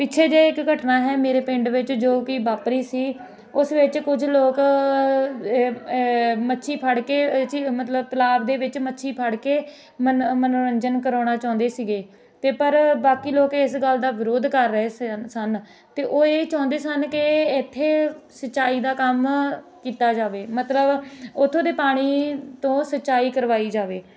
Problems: none marked